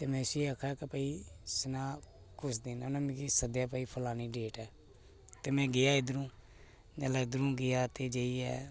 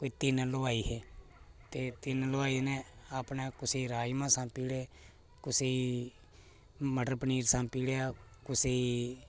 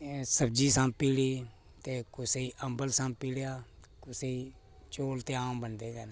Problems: none marked